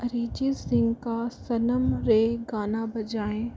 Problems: background sounds at intervals